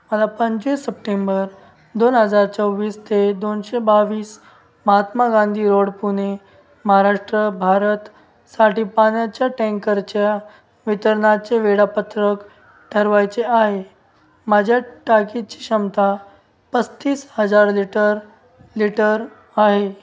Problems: constant background noise